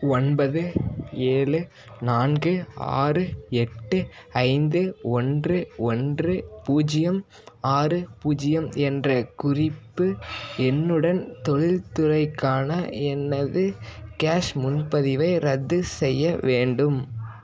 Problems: constant background noise, continuous background conversations